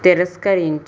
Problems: constant background noise